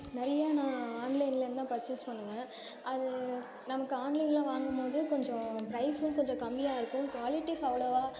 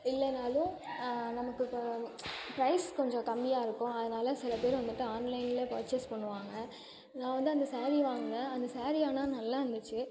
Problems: continuous background conversations